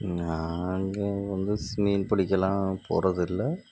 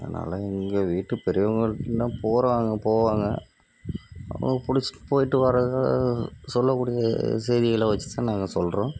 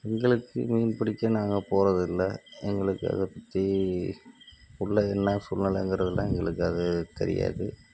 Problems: background sounds at intervals, low volume